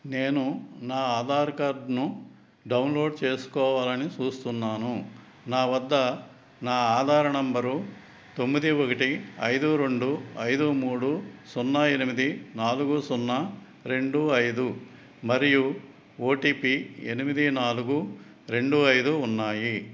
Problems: none marked